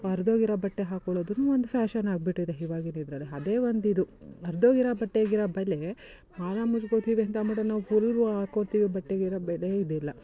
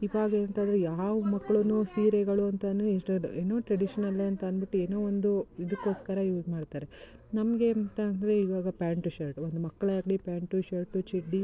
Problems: none marked